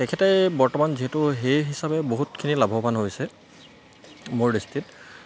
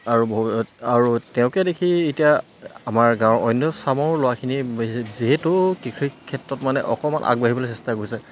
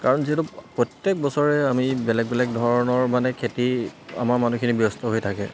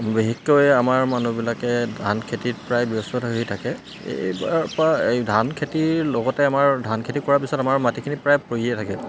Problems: constant background noise